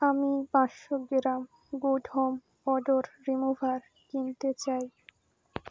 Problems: constant background noise